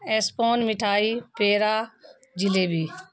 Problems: constant background noise